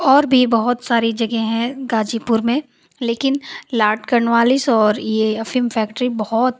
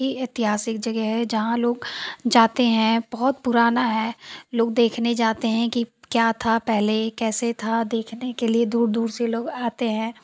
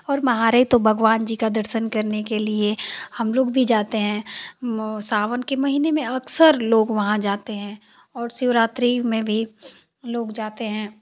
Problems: none marked